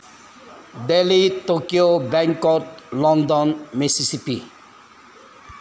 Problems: background sounds at intervals